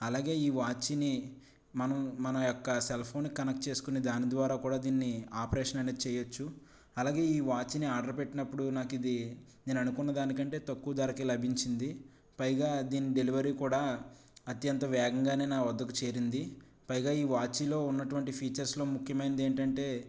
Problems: low volume